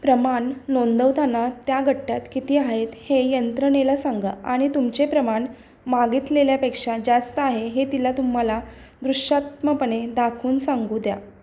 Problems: constant background noise